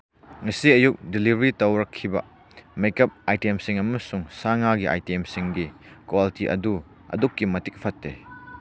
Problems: constant background noise